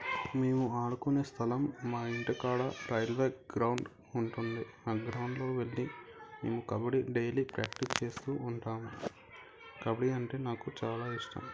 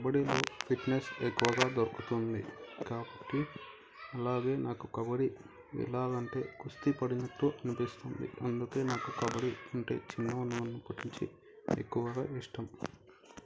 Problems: continuous background conversations